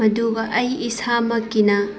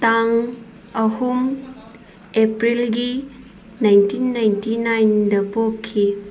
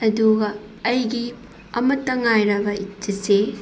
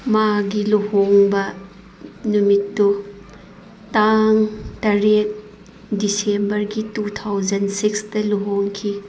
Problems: background sounds at intervals